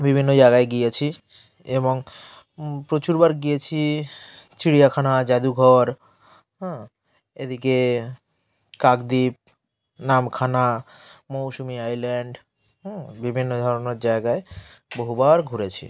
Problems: none marked